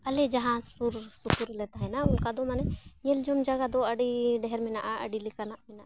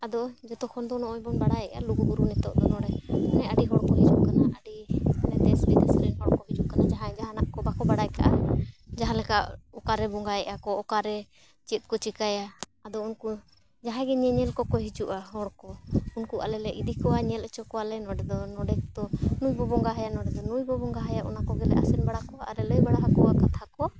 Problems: background sounds at intervals